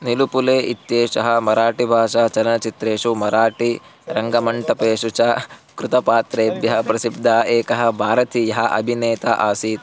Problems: background sounds at intervals